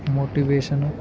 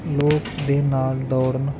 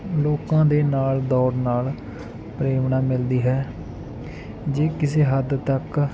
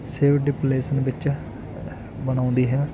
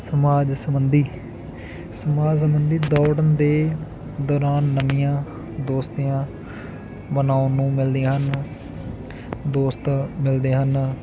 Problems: continuous background conversations